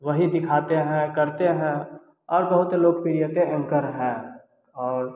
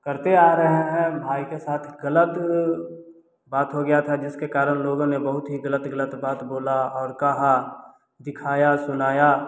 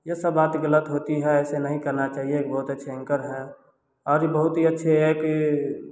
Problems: none marked